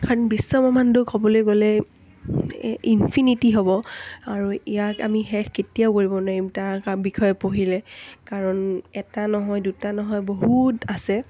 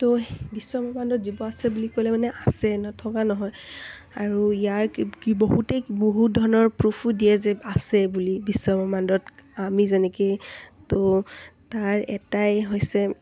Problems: none marked